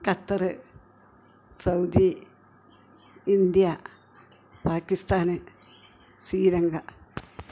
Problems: continuous background conversations